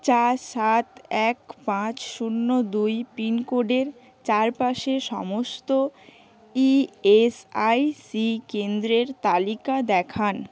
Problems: none marked